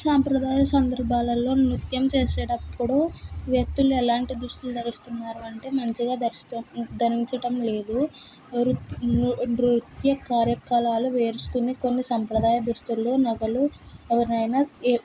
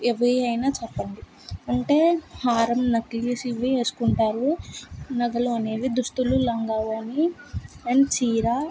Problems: constant background noise